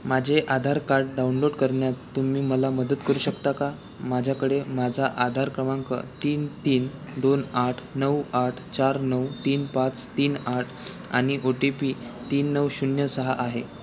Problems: constant background noise, background conversations at intervals